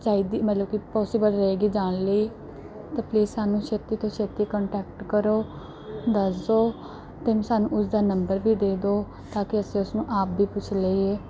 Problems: background sounds at intervals, background conversations at intervals